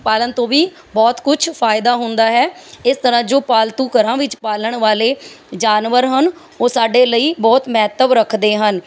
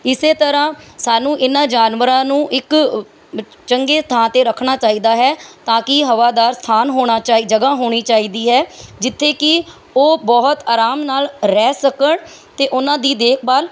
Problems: background sounds at intervals, background conversations at intervals